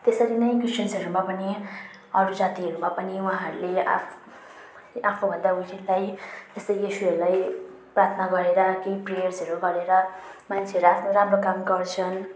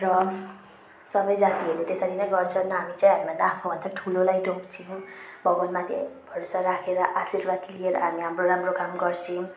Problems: none marked